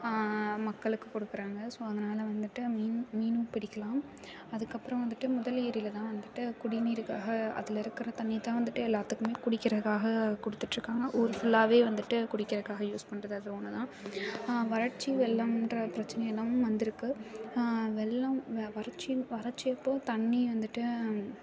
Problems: continuous background conversations